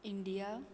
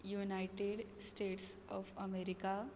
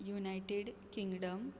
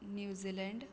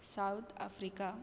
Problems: none marked